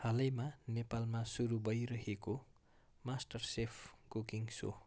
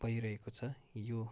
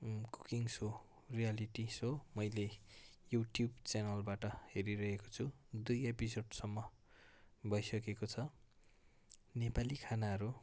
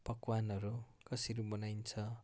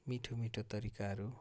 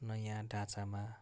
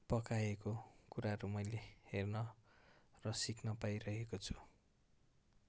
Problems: background sounds at intervals